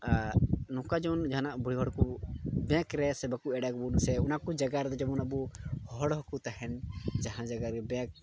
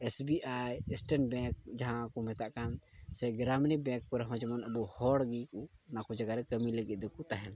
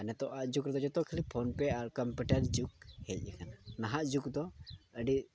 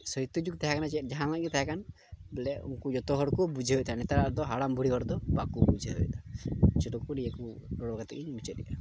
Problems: none marked